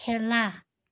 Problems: none marked